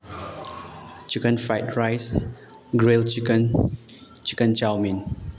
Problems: background sounds at intervals